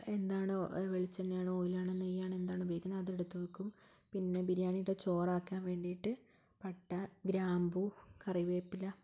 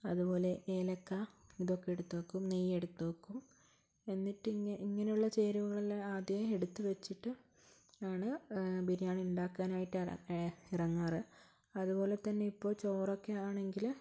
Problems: low volume